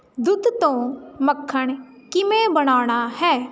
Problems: constant background noise